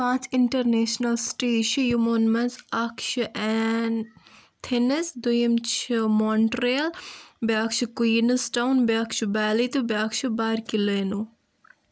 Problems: none marked